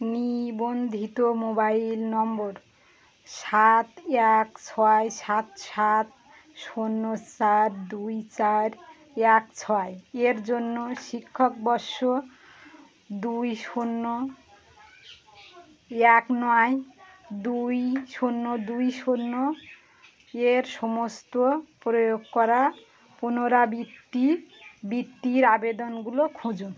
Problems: constant background noise, background conversations at intervals